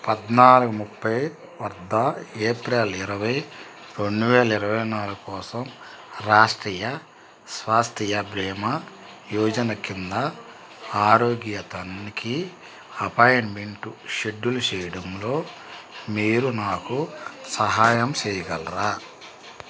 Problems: constant background noise